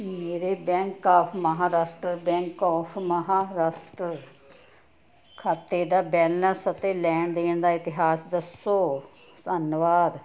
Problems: none marked